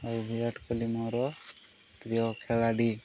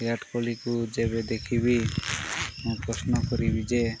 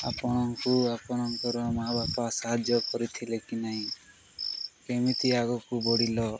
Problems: background sounds at intervals